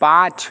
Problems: constant background noise